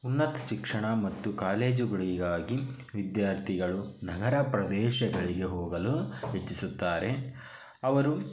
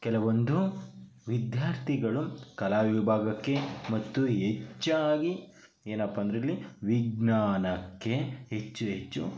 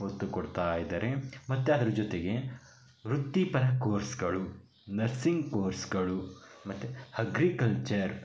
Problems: background sounds at intervals